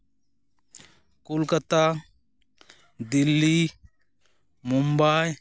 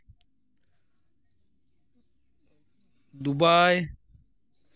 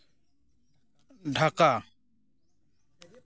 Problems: none marked